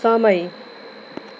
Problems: background sounds at intervals